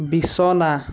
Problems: constant background noise